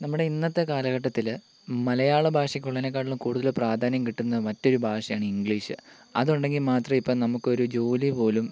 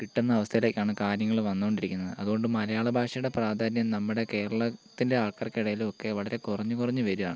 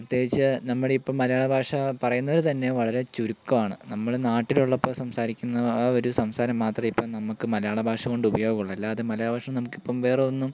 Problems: constant background noise, low volume